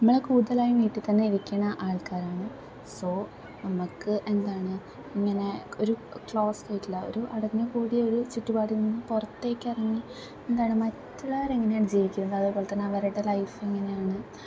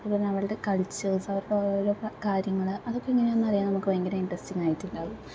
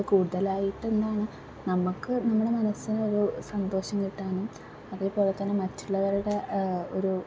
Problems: low volume